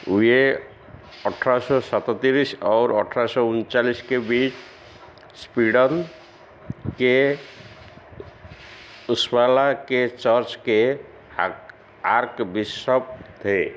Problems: constant background noise, echo